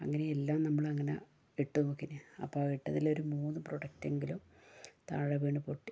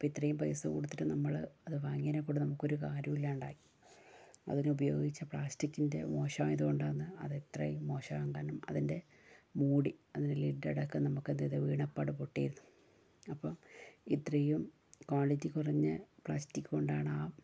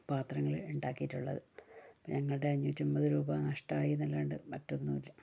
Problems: low volume